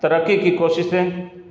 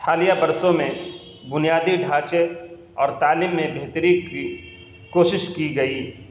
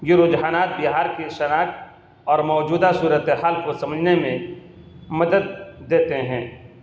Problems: constant background noise